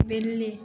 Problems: constant background noise